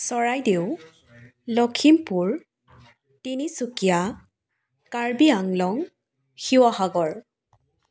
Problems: background conversations at intervals